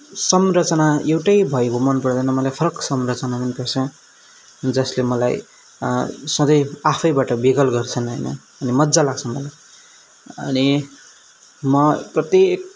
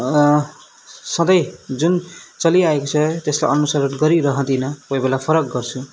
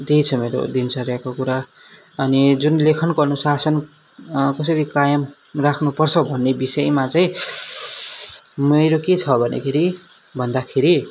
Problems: background sounds at intervals